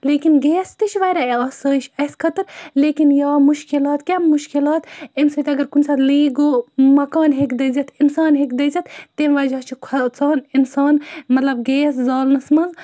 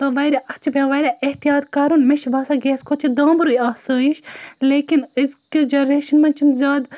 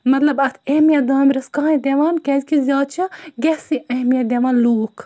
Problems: none marked